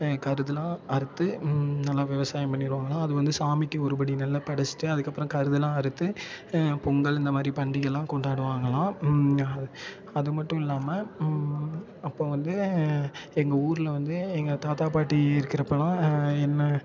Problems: constant background noise, continuous background conversations